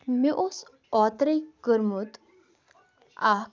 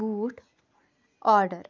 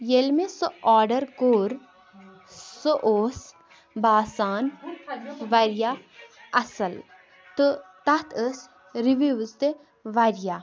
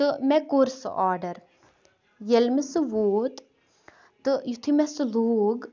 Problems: none marked